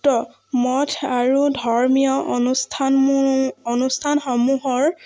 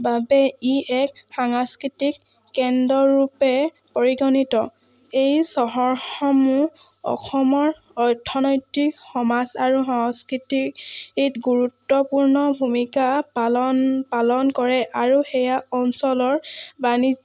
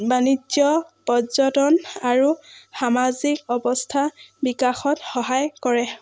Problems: none marked